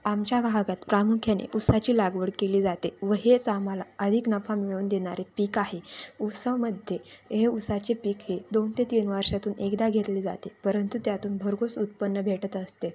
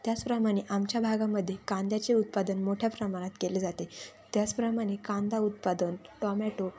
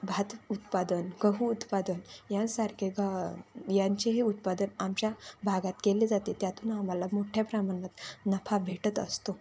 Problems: constant background noise